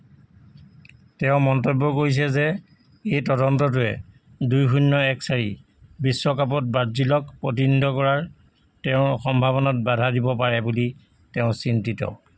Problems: constant background noise